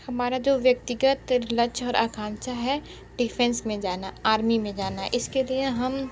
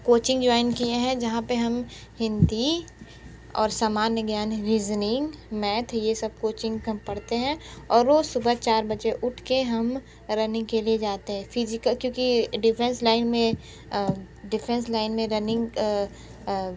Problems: none marked